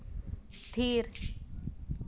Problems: constant background noise